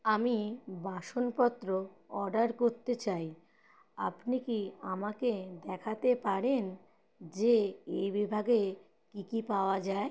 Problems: background sounds at intervals